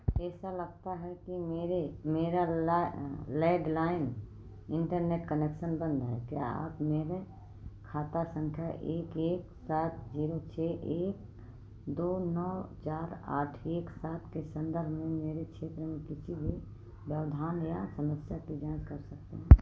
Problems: low volume